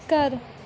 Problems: background sounds at intervals